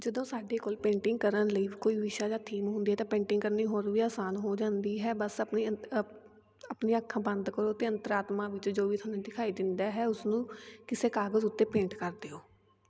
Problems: none marked